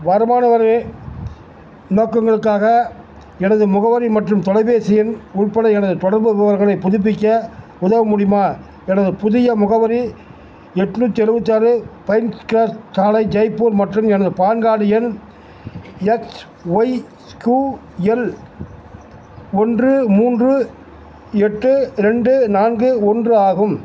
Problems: background sounds at intervals